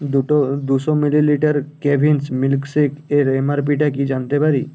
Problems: none marked